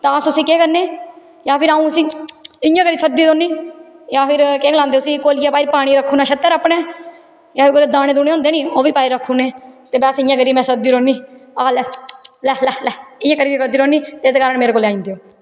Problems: constant background noise, echo